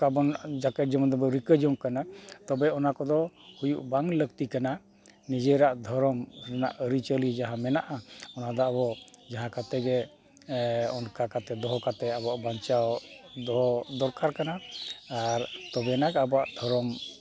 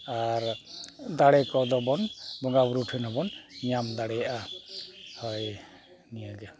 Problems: constant background noise, continuous background conversations